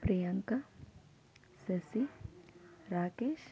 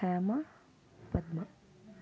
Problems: none marked